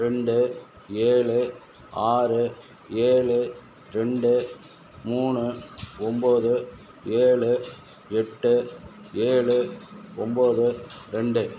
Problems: background sounds at intervals